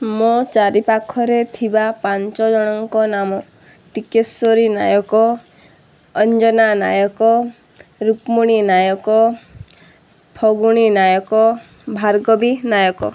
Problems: none marked